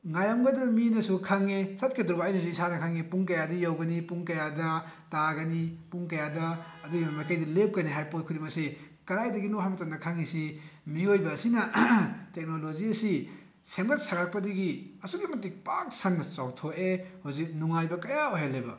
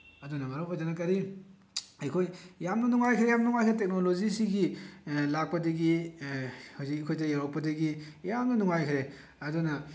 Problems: background sounds at intervals